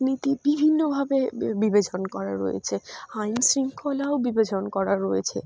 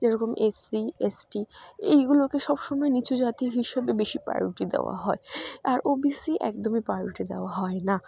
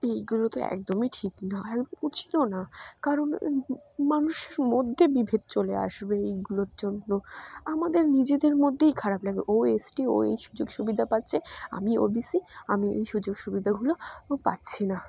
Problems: none marked